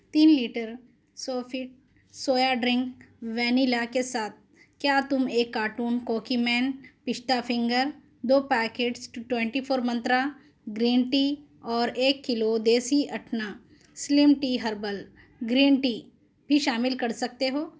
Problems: none marked